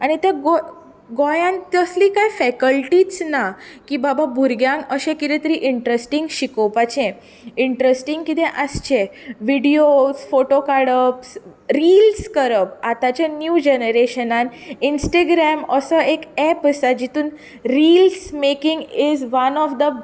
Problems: none marked